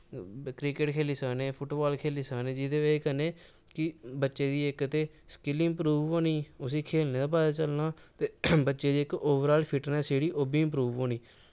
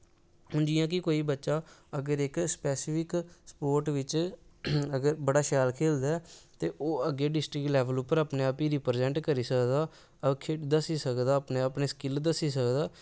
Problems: none marked